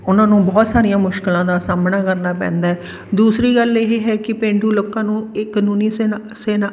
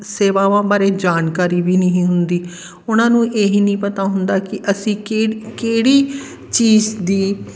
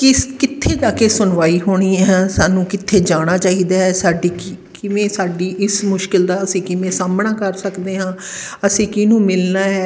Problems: constant background noise